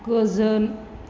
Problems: constant background noise